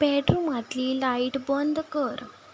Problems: background sounds at intervals